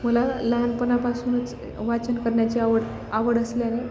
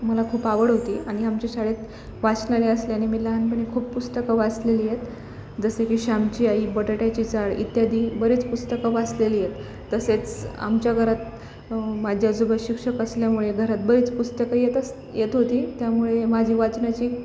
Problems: none marked